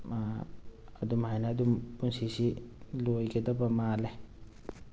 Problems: none marked